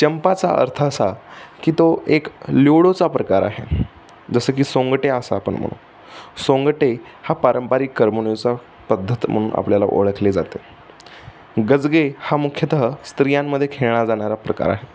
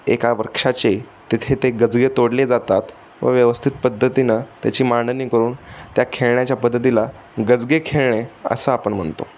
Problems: none marked